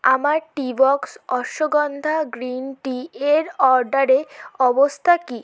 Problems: constant background noise